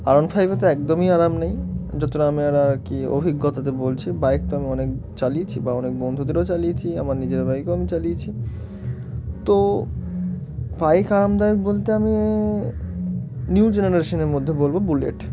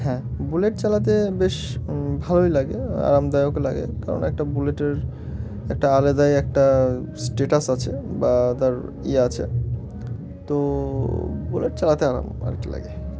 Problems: constant background noise, continuous background conversations